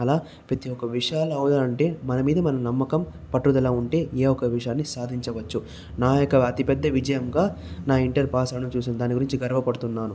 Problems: echo